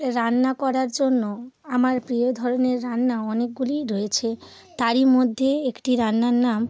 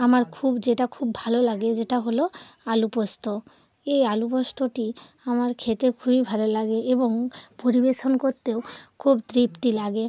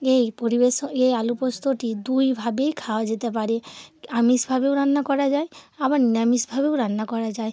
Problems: constant background noise